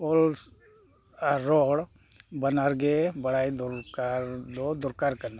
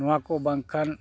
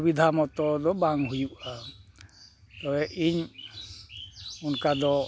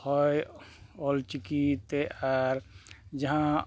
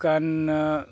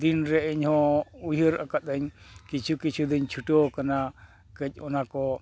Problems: none marked